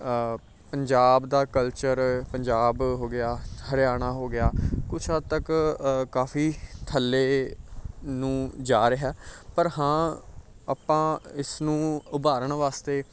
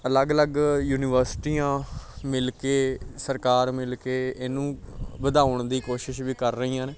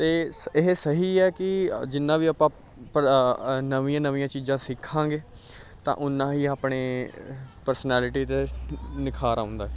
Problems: background sounds at intervals, background conversations at intervals